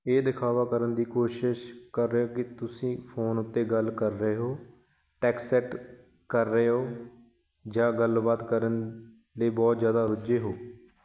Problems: none marked